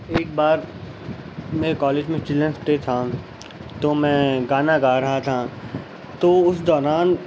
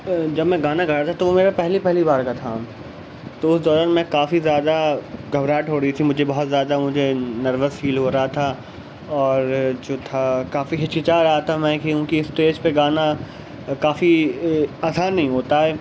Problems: constant background noise